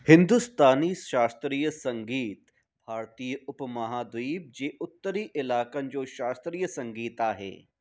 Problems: background sounds at intervals